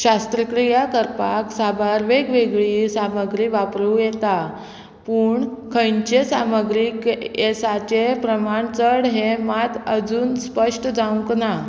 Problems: constant background noise